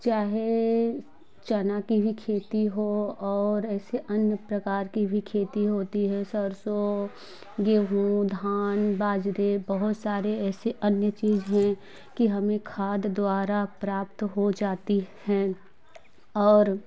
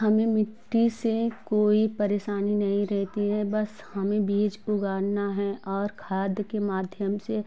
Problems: none marked